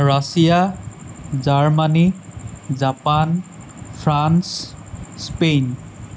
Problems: constant background noise